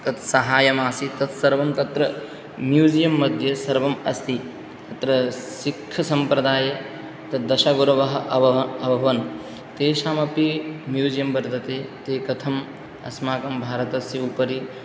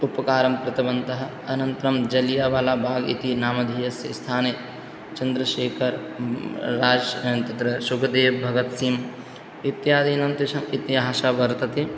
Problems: none marked